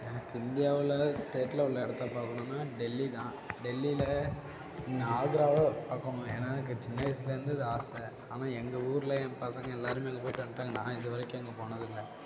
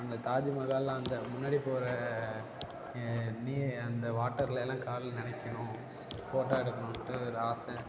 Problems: constant background noise, low volume